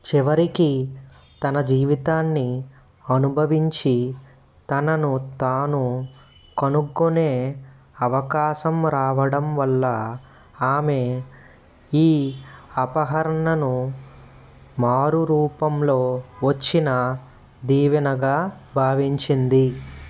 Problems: constant background noise